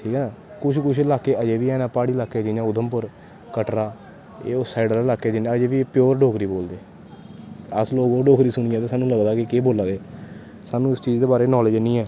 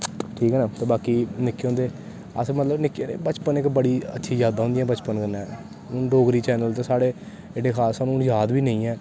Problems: constant background noise